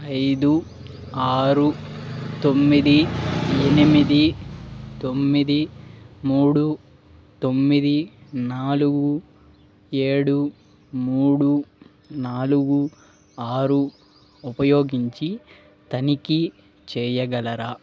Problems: background sounds at intervals